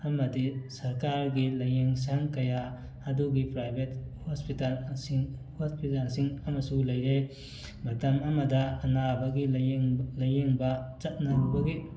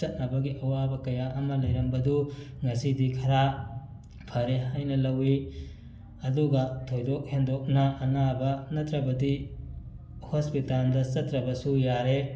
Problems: background sounds at intervals, background conversations at intervals